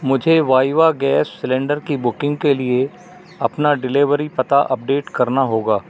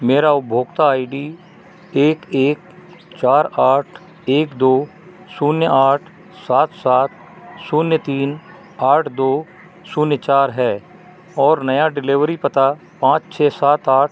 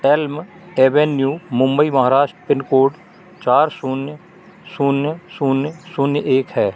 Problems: none marked